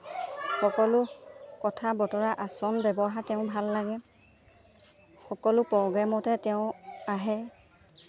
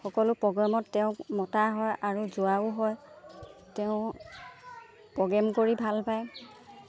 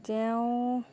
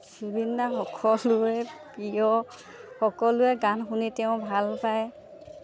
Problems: background sounds at intervals